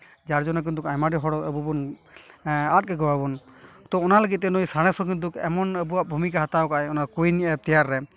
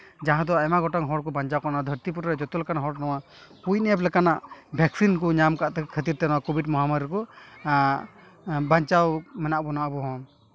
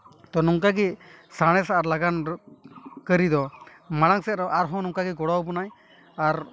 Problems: constant background noise